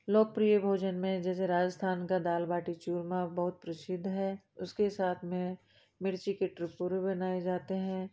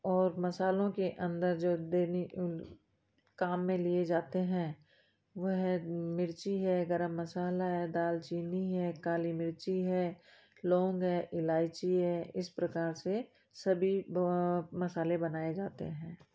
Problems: background sounds at intervals